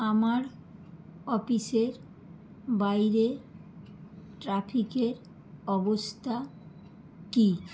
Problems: none marked